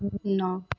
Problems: echo